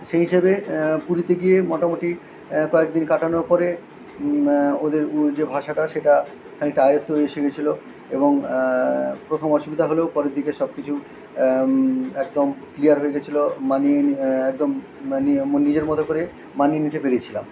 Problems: constant background noise